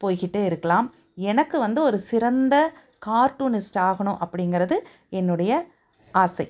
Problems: none marked